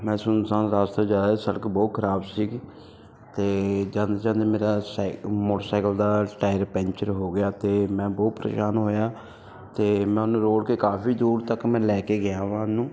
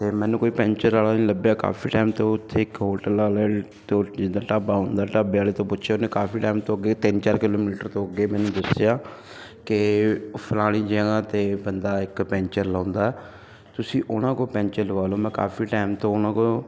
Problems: none marked